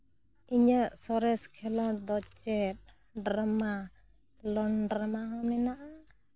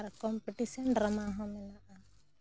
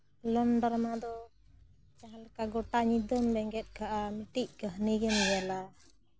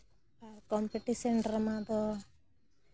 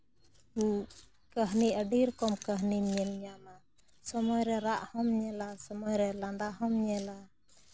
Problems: none marked